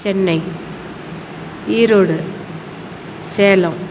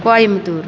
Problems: constant background noise